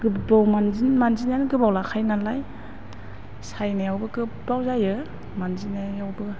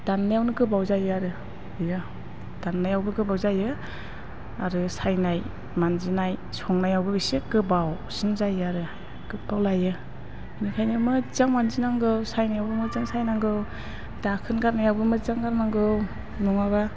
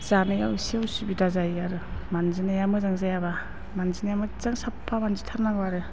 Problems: constant background noise